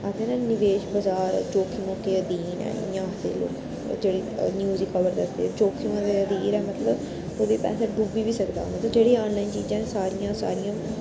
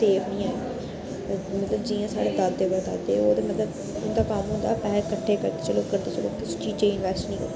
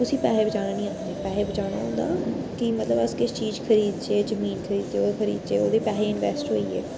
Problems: constant background noise